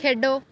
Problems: constant background noise